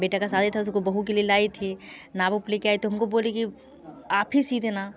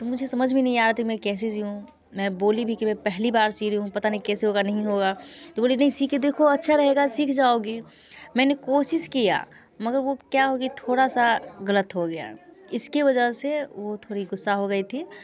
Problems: constant background noise